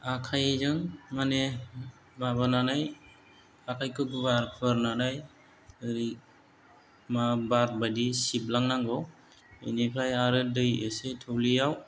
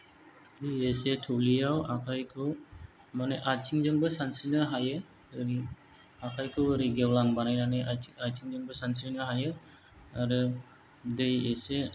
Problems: low volume